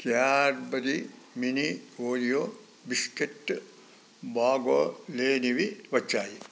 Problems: none marked